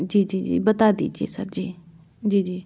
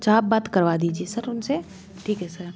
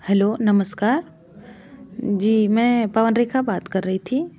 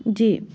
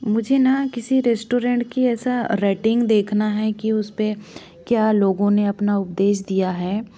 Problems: background sounds at intervals